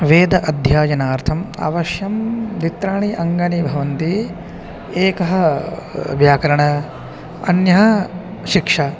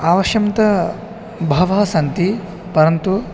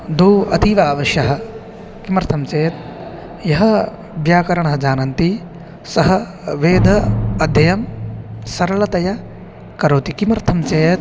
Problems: constant background noise, continuous background conversations